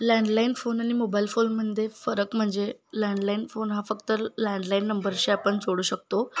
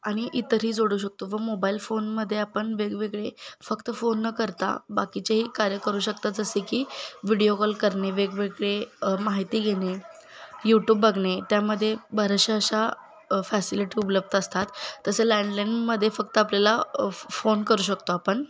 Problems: constant background noise, continuous background conversations